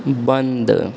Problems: constant background noise